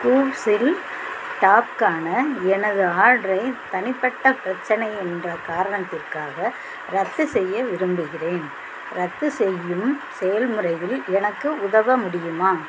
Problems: constant background noise